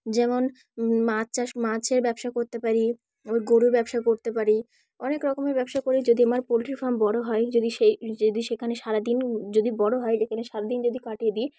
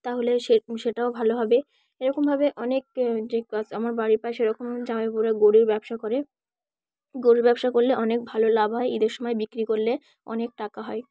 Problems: background sounds at intervals, background conversations at intervals